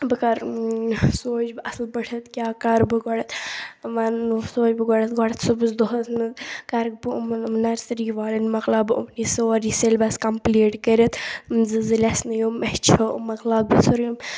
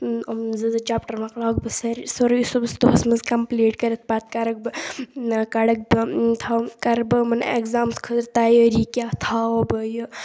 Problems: background sounds at intervals